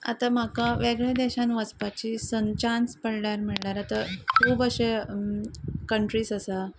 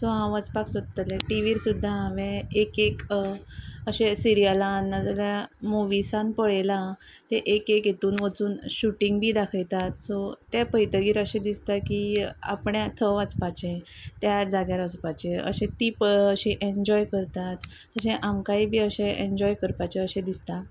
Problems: constant background noise